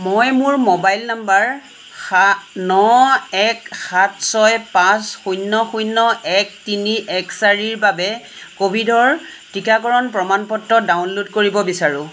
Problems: constant background noise